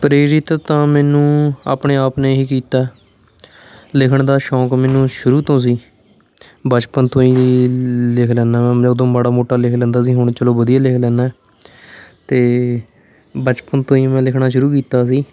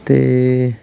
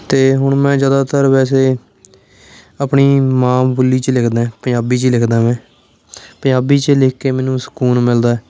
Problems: constant background noise, background conversations at intervals